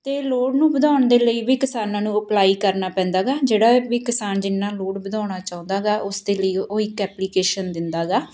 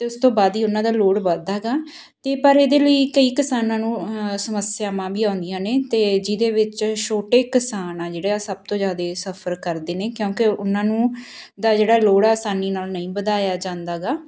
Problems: background sounds at intervals